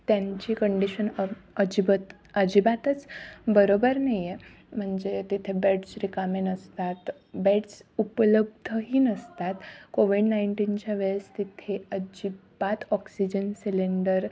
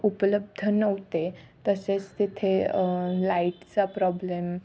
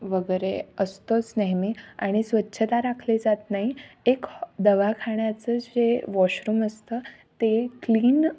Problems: none marked